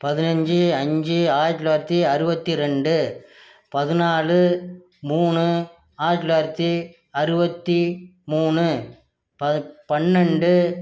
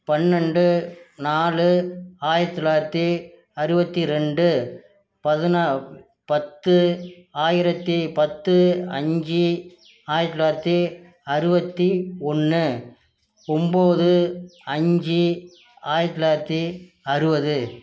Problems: none marked